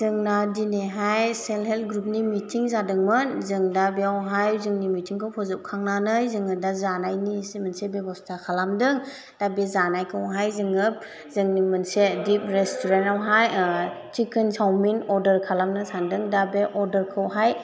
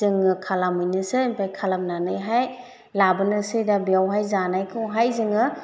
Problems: none marked